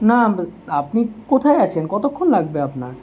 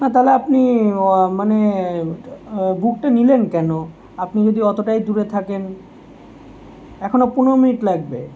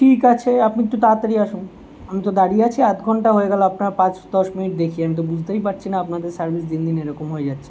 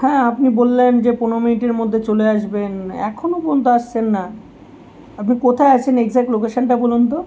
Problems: constant background noise